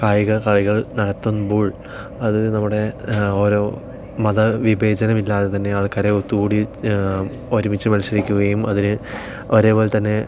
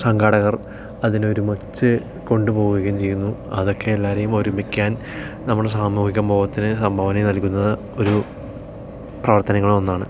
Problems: none marked